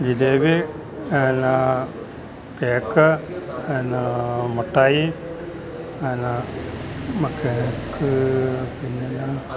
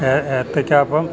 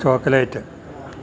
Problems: background sounds at intervals